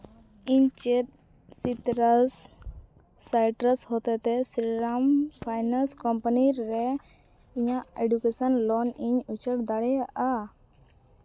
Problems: background sounds at intervals